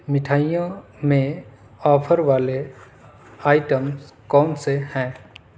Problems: constant background noise